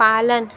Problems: none marked